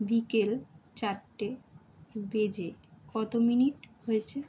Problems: background sounds at intervals